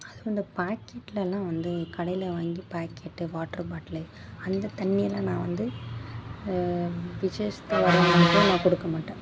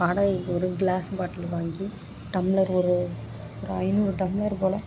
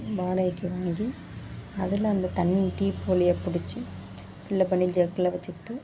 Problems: constant background noise